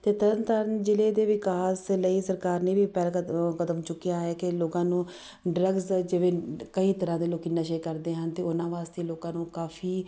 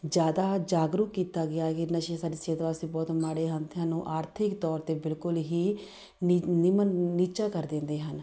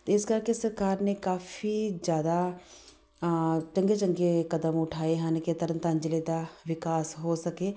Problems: background sounds at intervals